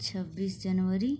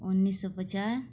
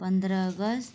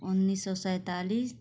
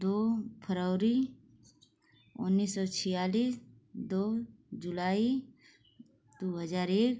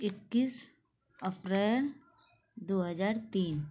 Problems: constant background noise